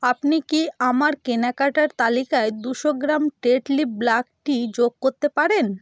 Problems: background sounds at intervals